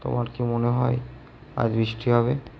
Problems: echo